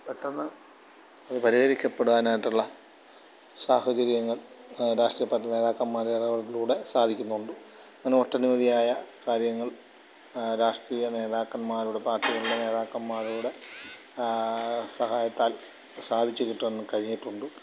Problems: low volume